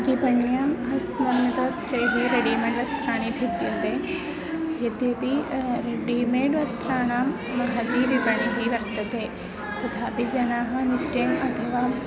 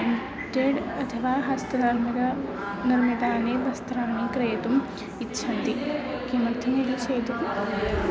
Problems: background sounds at intervals